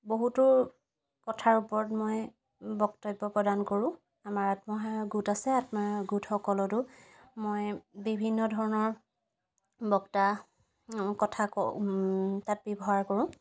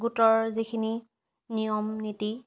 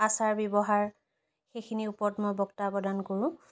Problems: background sounds at intervals